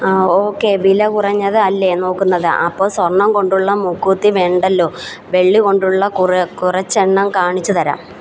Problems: background sounds at intervals